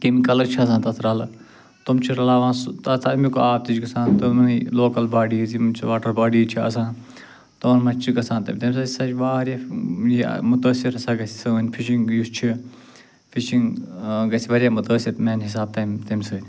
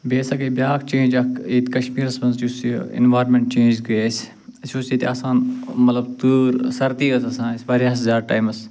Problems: none marked